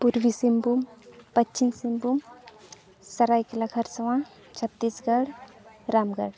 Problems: none marked